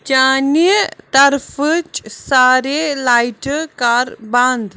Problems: constant background noise